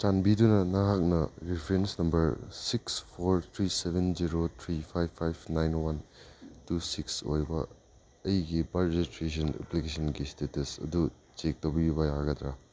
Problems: none marked